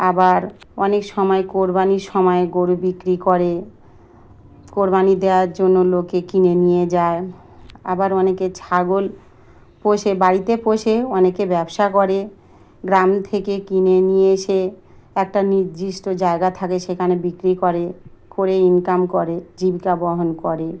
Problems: constant background noise